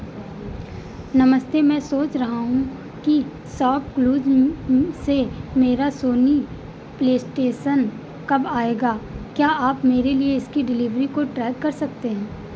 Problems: constant background noise